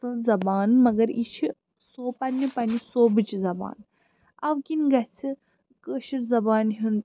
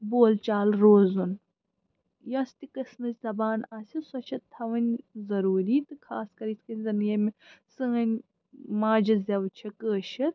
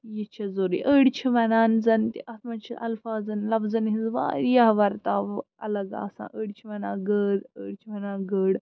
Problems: constant background noise